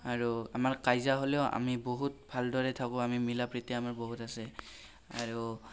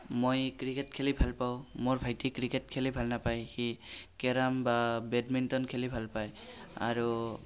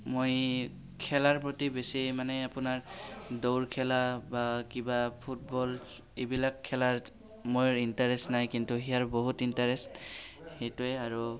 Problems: none marked